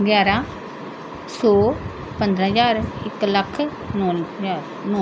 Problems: constant background noise